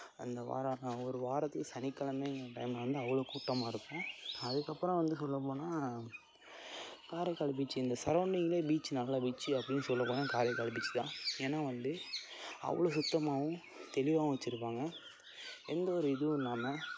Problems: constant background noise